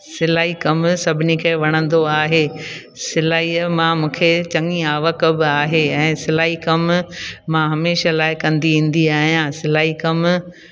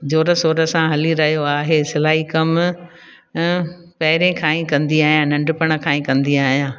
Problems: constant background noise, echo